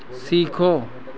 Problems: constant background noise